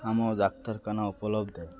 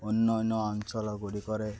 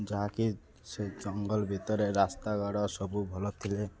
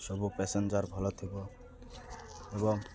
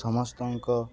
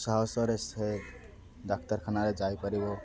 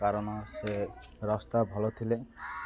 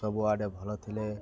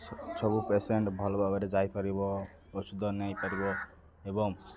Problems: constant background noise, continuous background conversations